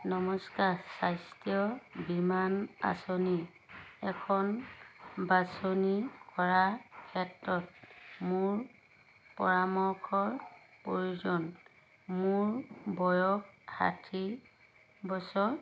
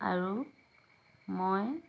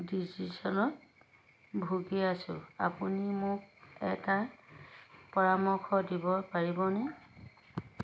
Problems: background sounds at intervals